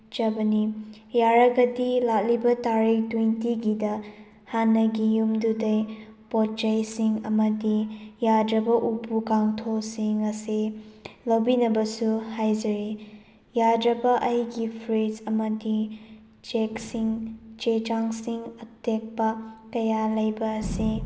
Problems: background sounds at intervals, background conversations at intervals